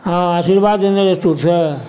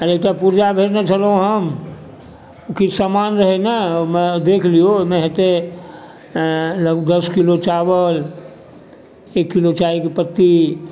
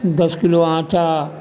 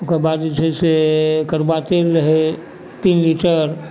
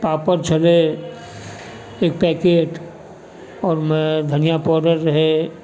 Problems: background sounds at intervals